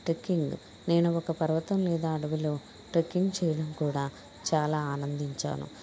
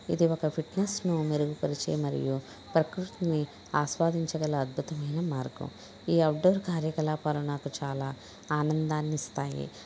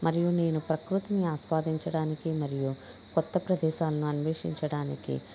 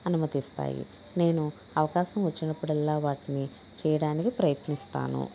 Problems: background conversations at intervals